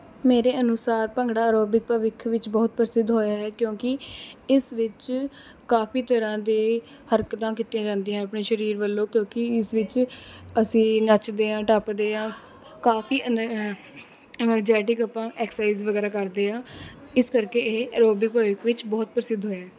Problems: none marked